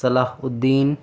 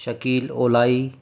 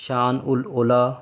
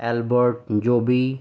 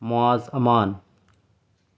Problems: none marked